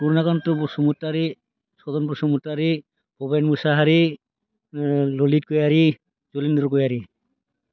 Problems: none marked